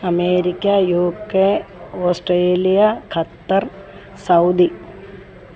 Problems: constant background noise